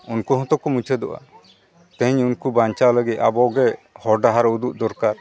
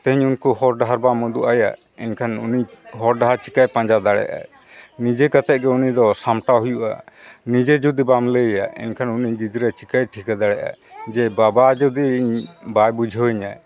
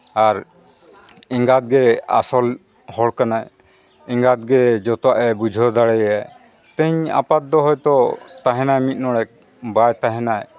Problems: background sounds at intervals, background conversations at intervals